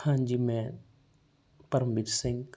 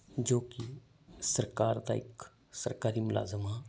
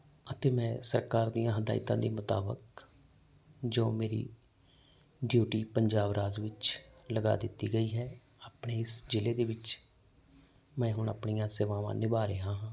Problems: background sounds at intervals